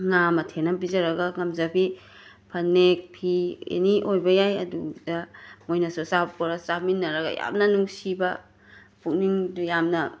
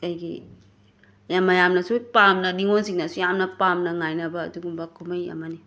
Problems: background sounds at intervals